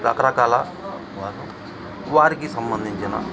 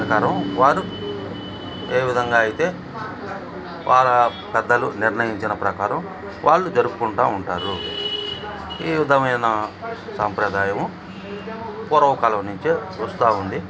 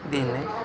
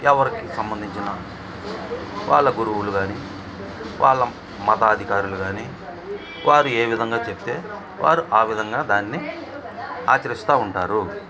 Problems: constant background noise